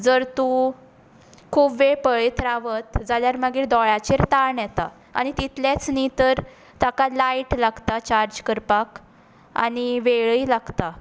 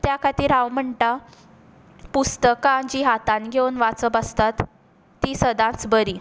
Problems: none marked